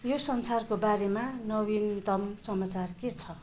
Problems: background conversations at intervals